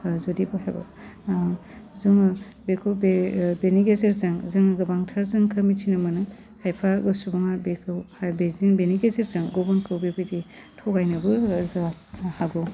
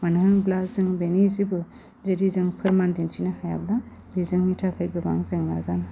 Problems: constant background noise